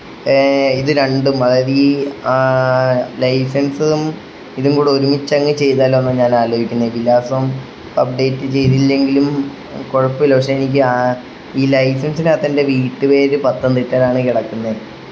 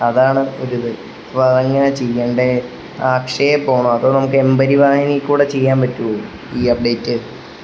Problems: constant background noise